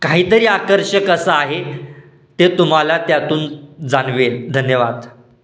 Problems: constant background noise